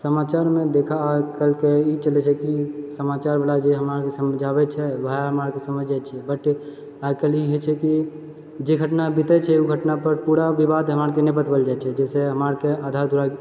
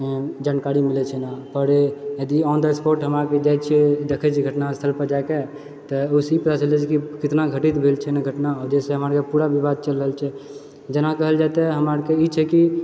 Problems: none marked